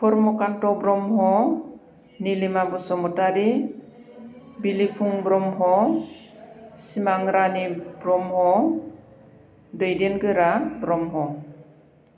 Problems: constant background noise